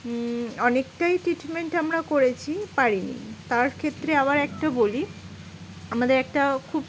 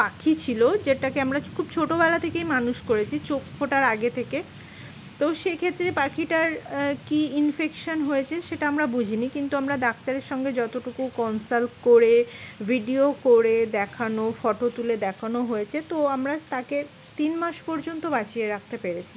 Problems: constant background noise